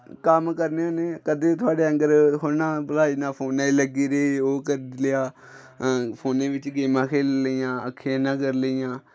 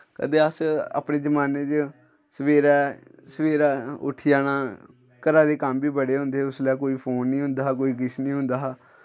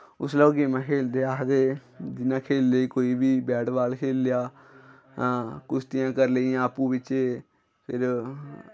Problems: none marked